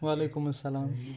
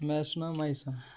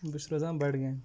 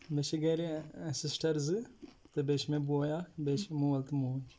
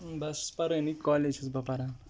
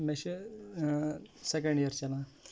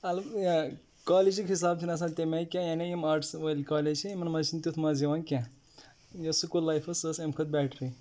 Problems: background sounds at intervals